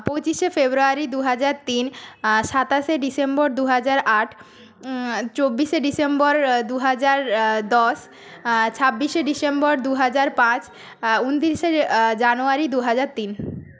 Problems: background sounds at intervals